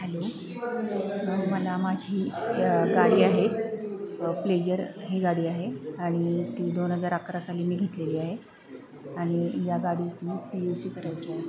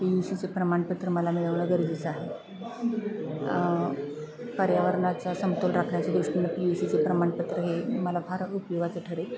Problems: constant background noise, continuous background conversations